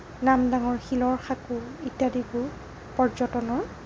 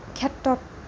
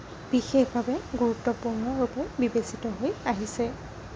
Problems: constant background noise